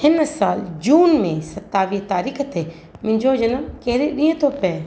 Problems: constant background noise, echo